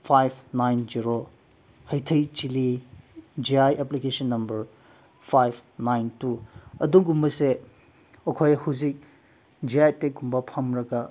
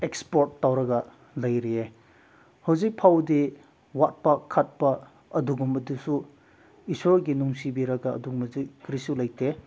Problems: background sounds at intervals